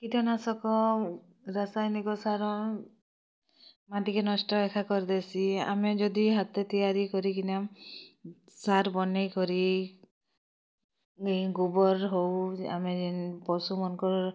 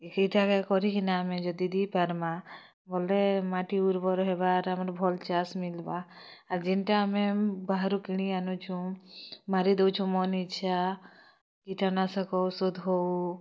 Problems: constant background noise